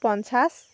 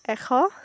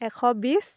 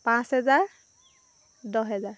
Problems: constant background noise